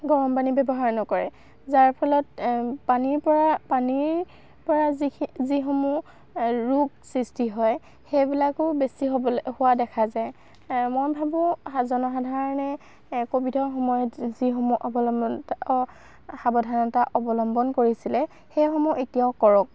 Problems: none marked